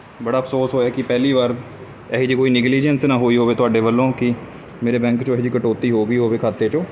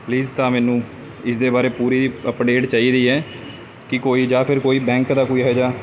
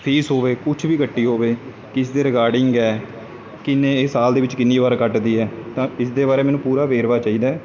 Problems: constant background noise